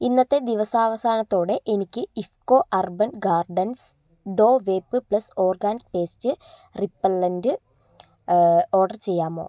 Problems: none marked